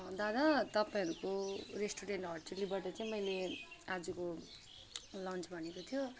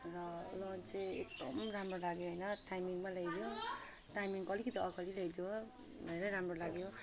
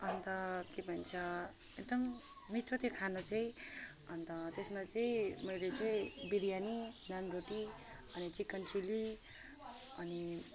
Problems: background sounds at intervals